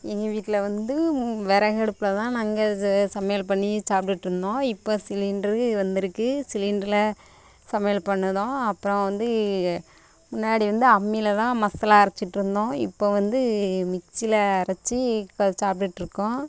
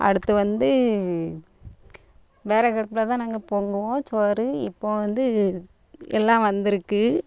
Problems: constant background noise